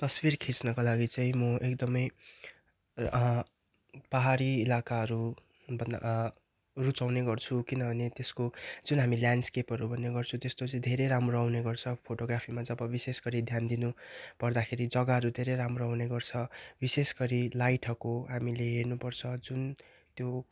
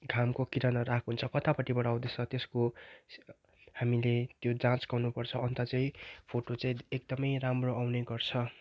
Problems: constant background noise